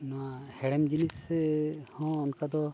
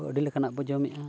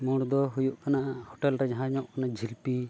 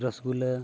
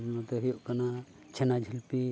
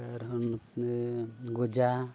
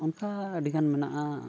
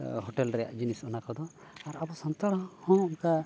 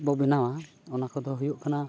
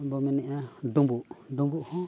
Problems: background sounds at intervals